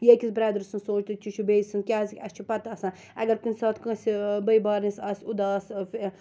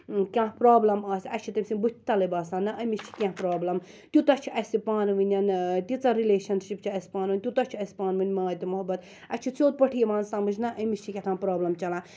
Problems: none marked